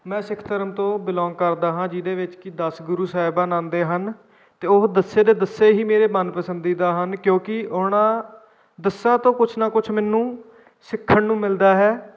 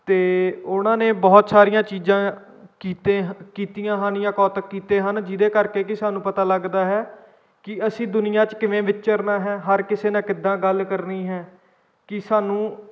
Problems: background sounds at intervals